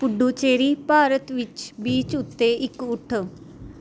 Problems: none marked